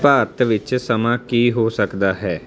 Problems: none marked